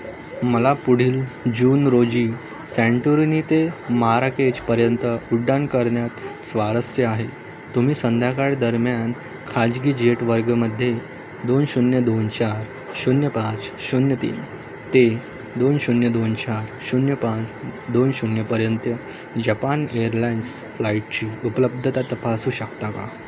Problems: constant background noise, background conversations at intervals